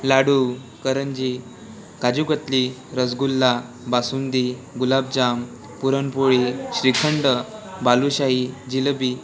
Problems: constant background noise, continuous background conversations